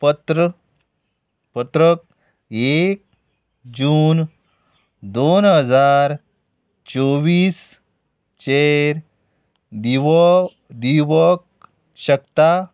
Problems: none marked